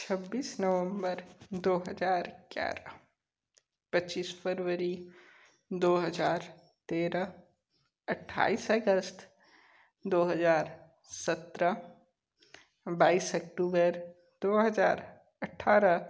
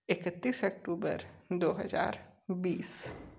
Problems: constant background noise